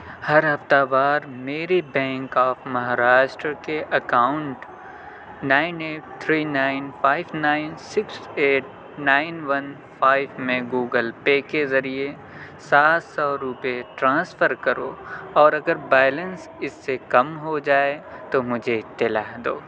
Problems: none marked